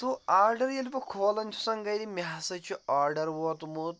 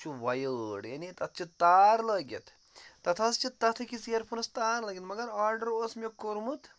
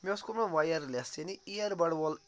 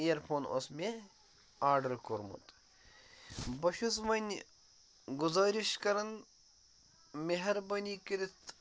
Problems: none marked